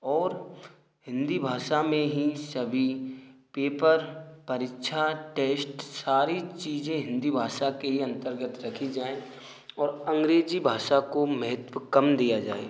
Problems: none marked